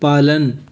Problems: constant background noise